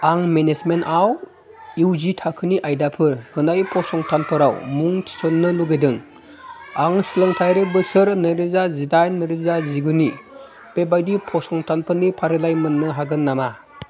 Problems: continuous background conversations